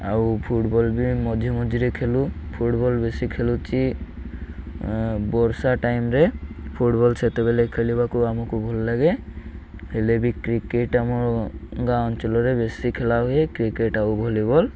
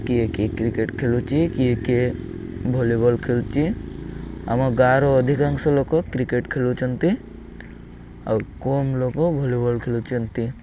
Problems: none marked